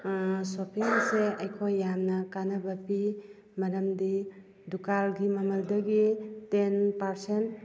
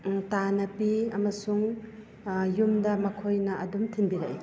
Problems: background conversations at intervals